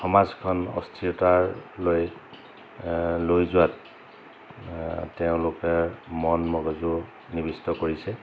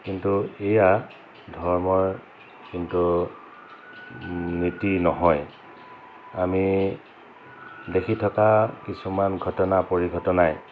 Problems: constant background noise